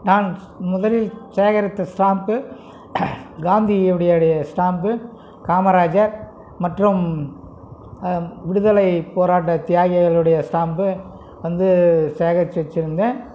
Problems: background conversations at intervals